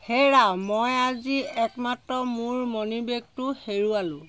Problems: none marked